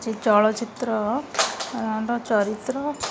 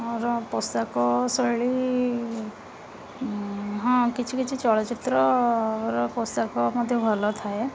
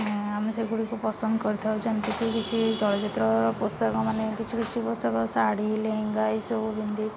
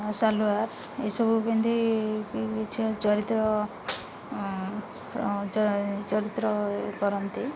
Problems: constant background noise, continuous background conversations